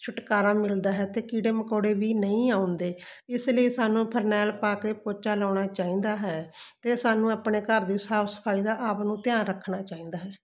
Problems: constant background noise